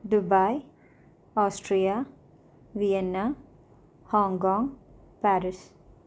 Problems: low volume